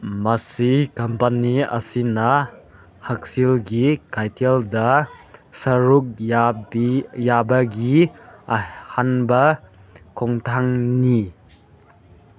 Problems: none marked